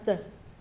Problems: constant background noise